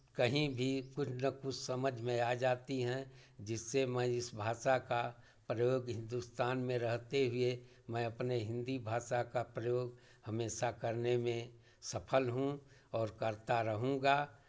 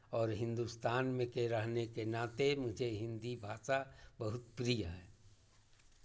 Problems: none marked